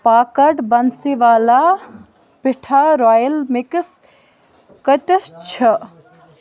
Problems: constant background noise